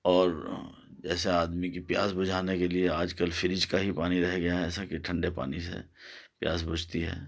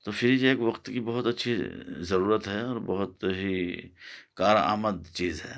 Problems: none marked